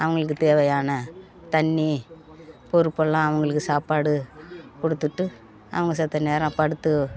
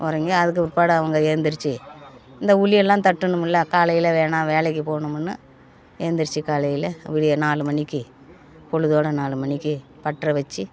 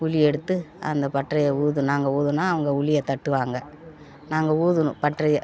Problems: background conversations at intervals